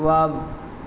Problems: constant background noise